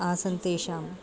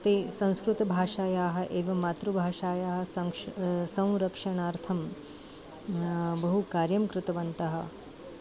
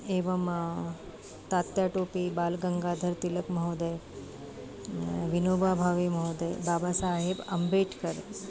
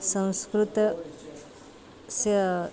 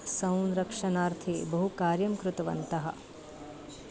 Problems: constant background noise, continuous background conversations